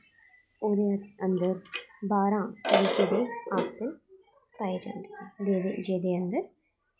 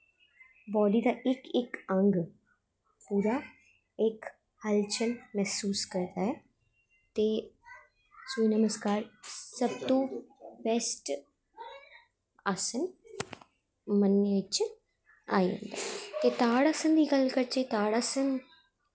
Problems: constant background noise